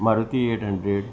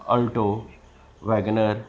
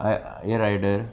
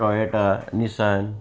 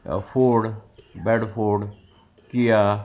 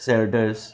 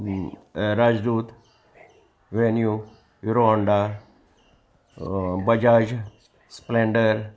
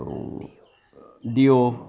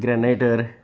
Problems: constant background noise, continuous background conversations